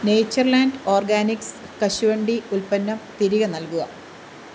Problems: constant background noise